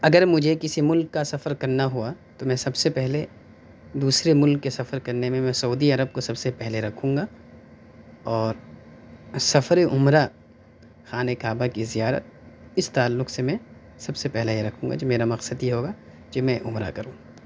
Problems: none marked